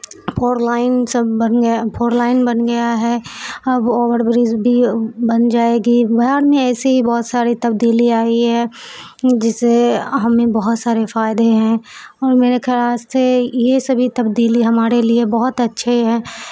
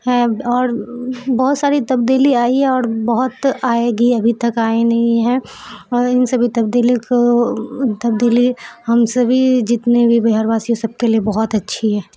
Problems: background sounds at intervals